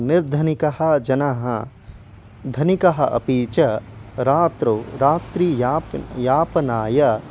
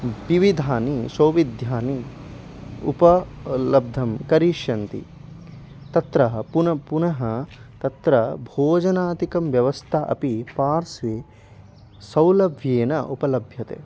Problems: background sounds at intervals